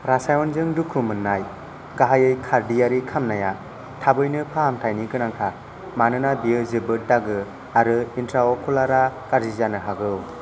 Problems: constant background noise